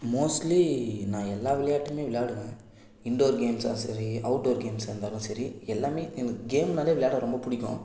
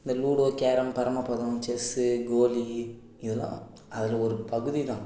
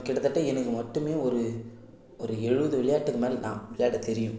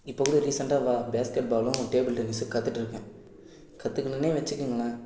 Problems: background sounds at intervals